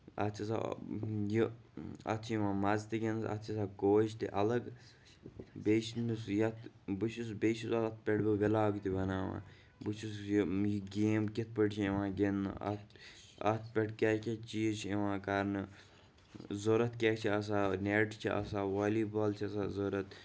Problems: none marked